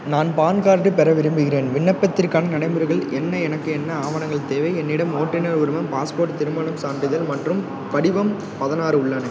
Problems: constant background noise, background conversations at intervals